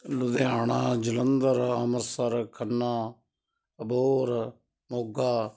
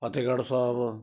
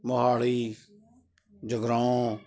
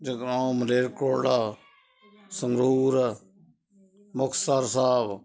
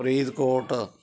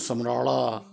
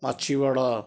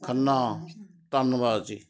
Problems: continuous background conversations